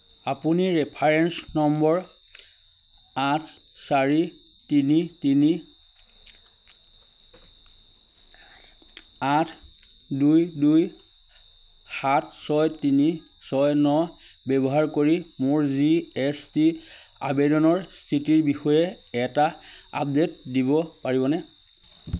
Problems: constant background noise, background conversations at intervals